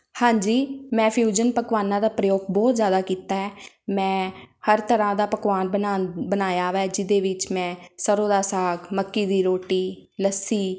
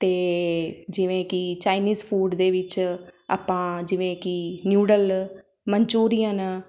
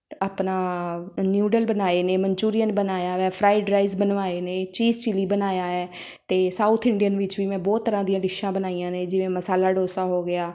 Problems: background sounds at intervals